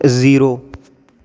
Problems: constant background noise